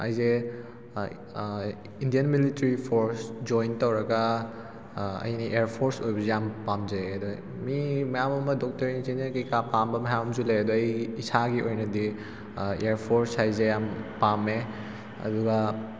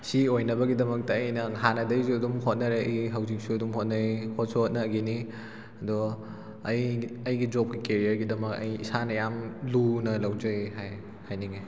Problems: constant background noise